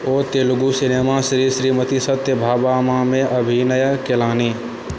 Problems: constant background noise